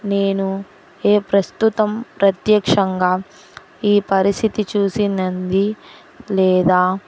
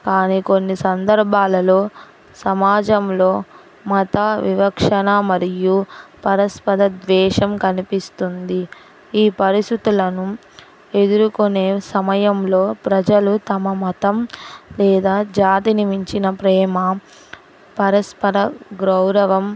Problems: none marked